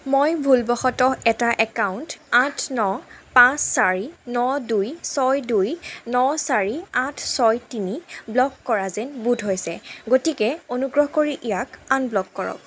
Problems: background sounds at intervals